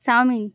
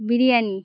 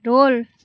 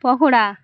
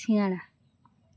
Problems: none marked